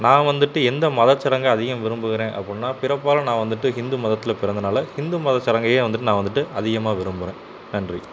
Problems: constant background noise